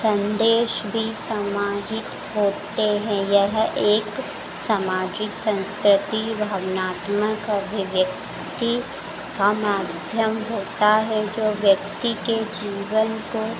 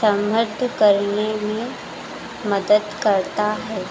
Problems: background sounds at intervals